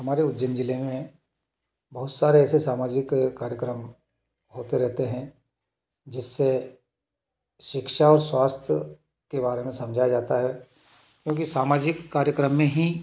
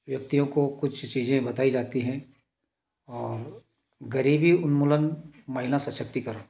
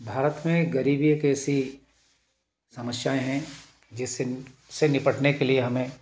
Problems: none marked